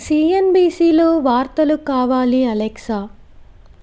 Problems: constant background noise